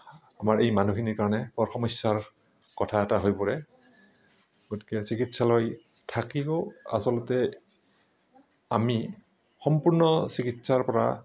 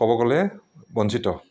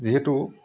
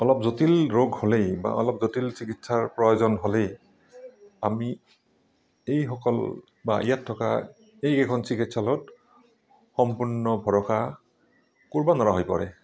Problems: background sounds at intervals